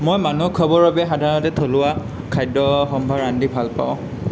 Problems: background sounds at intervals